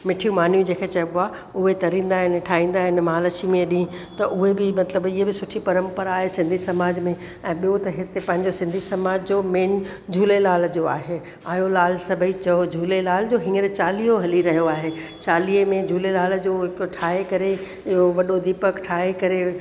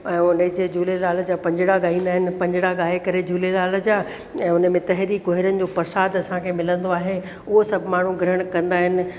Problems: constant background noise, echo